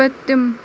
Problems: constant background noise